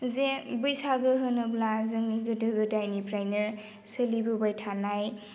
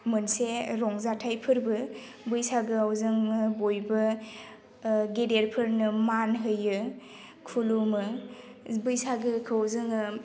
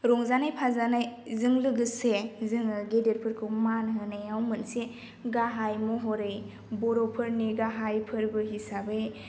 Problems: none marked